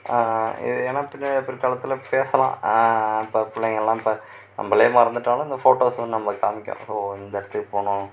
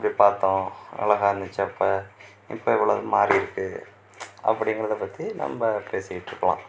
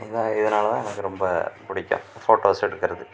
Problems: none marked